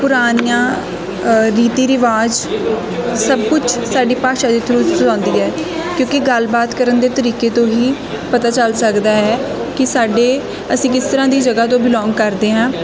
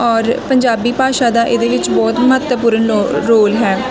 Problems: constant background noise, continuous background conversations